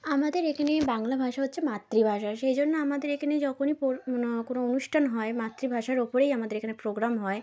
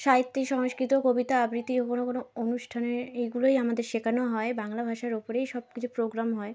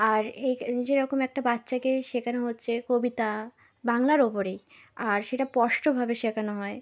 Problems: none marked